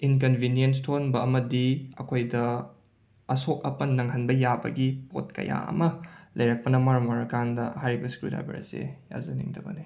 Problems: none marked